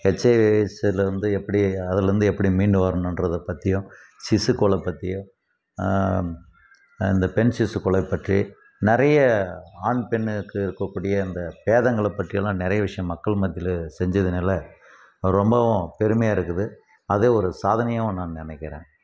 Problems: constant background noise